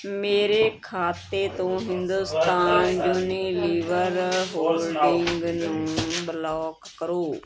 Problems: continuous background conversations